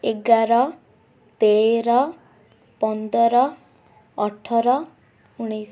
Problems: none marked